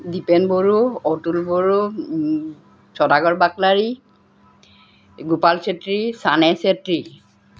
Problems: none marked